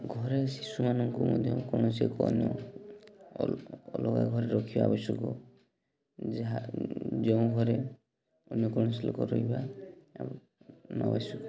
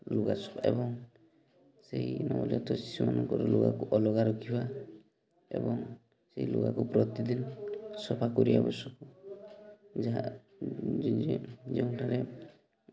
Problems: constant background noise, continuous background conversations